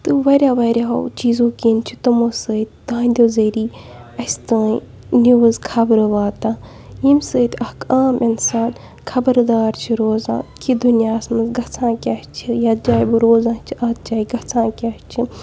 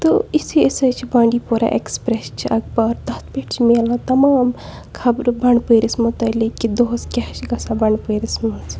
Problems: background sounds at intervals, low volume